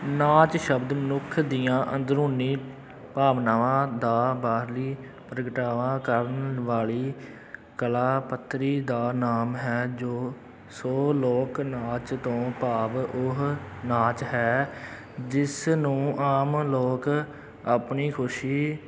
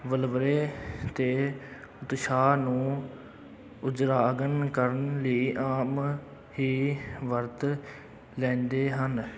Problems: none marked